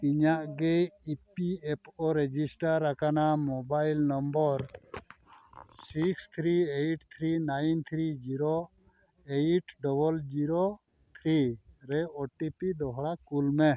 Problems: none marked